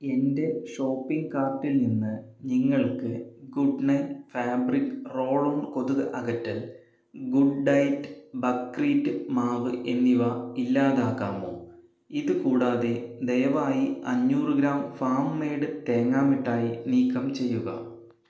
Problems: none marked